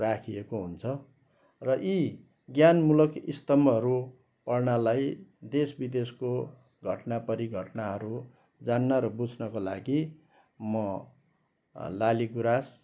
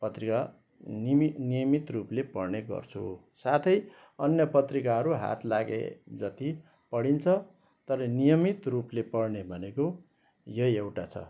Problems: background sounds at intervals